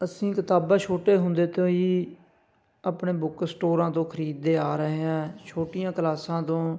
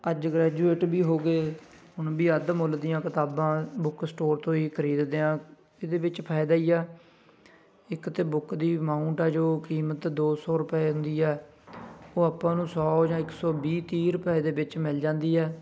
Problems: constant background noise, background conversations at intervals